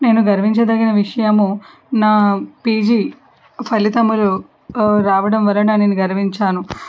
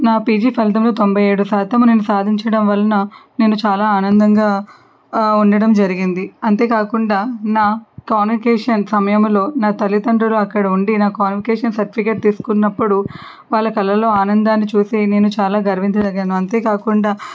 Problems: background sounds at intervals